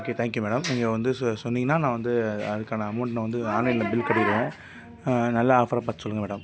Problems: background sounds at intervals